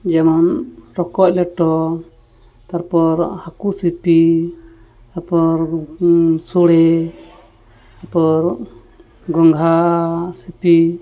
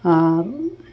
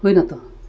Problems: constant background noise